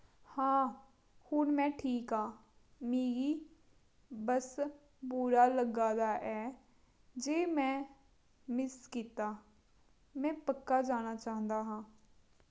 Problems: low volume